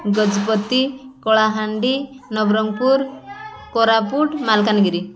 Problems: constant background noise, continuous background conversations